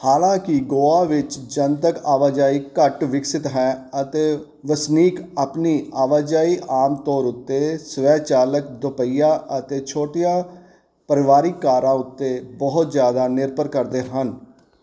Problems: none marked